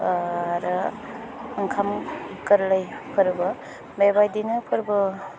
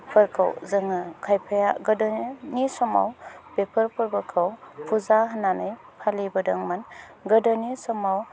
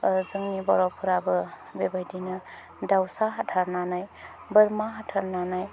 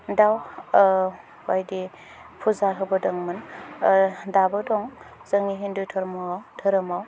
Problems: low volume